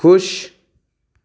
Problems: none marked